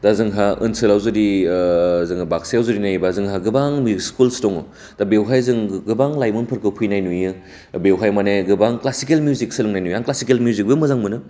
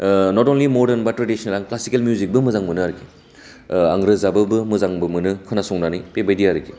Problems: constant background noise